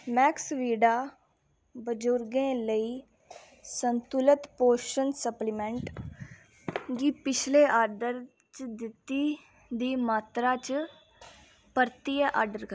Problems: none marked